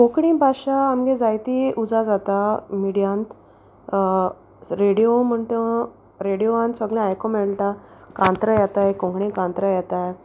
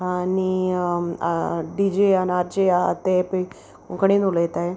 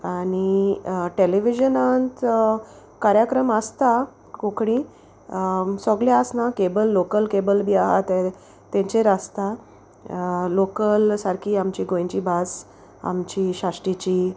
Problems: constant background noise